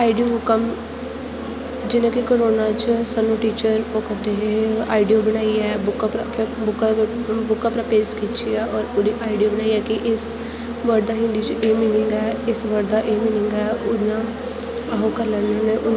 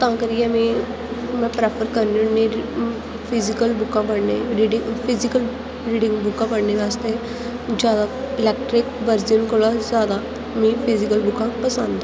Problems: constant background noise